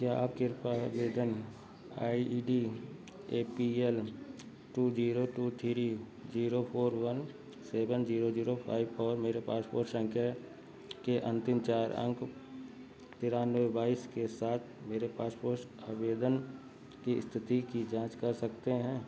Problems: background sounds at intervals, low volume